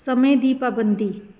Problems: none marked